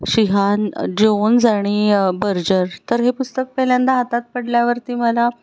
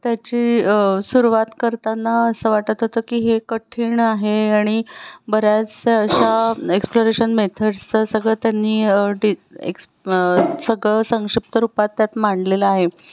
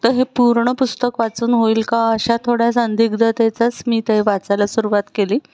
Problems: background sounds at intervals